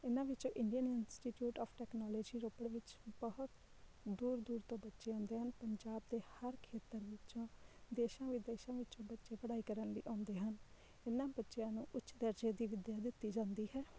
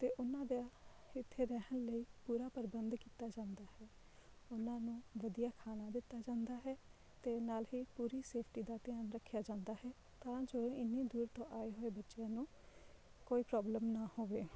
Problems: none marked